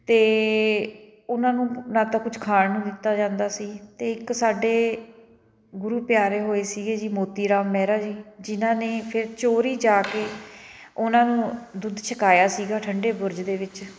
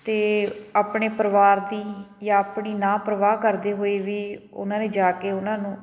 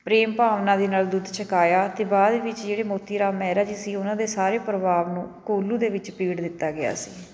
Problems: background sounds at intervals